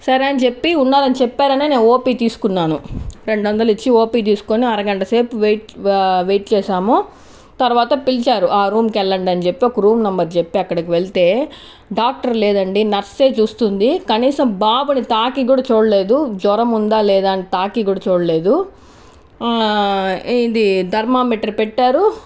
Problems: none marked